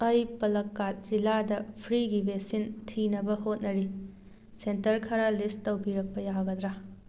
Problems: none marked